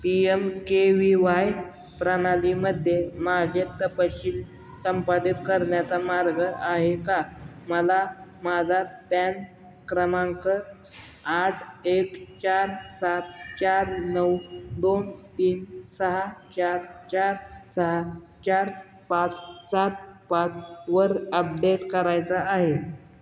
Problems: constant background noise, echo